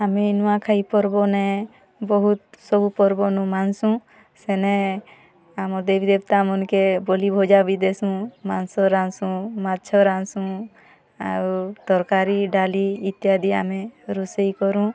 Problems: constant background noise, continuous background conversations